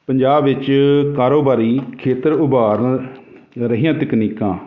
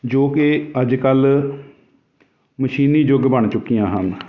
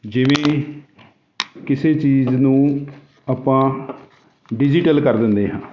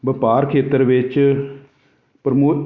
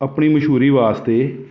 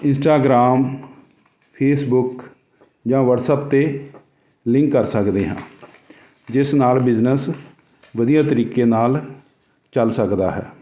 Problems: none marked